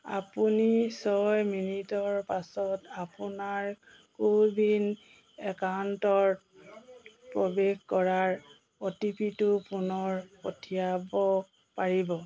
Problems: constant background noise, background conversations at intervals